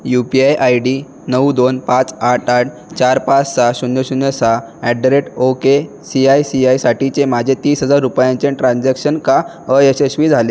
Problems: constant background noise, background conversations at intervals